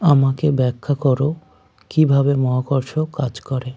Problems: constant background noise